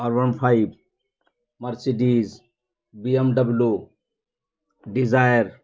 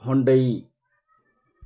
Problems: none marked